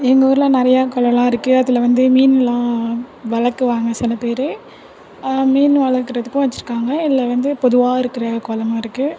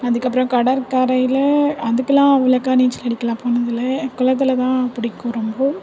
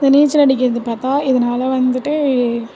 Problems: constant background noise, continuous background conversations